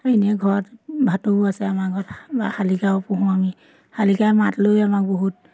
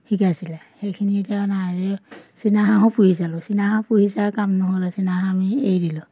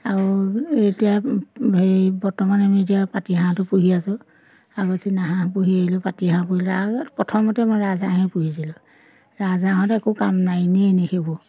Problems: constant background noise